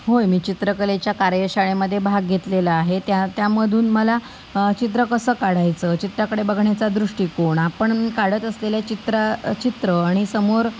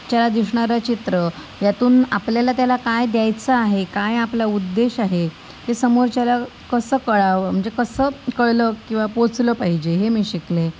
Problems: constant background noise